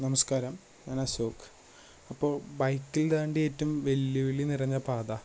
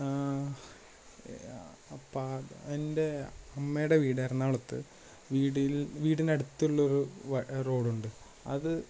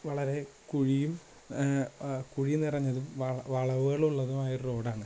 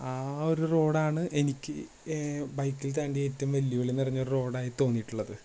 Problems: low volume